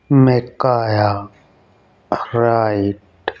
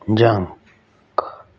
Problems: none marked